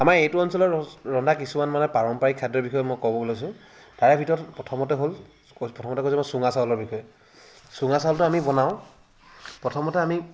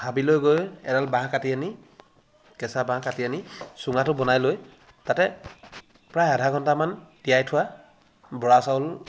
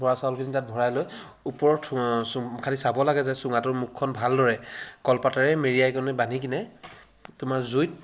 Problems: constant background noise, background conversations at intervals